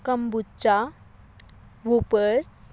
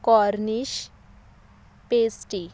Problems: constant background noise